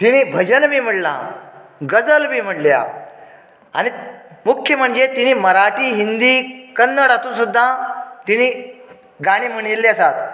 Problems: low volume